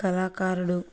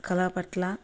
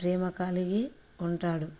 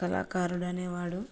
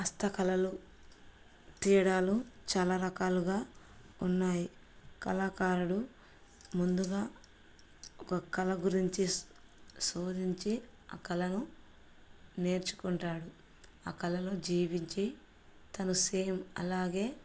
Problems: none marked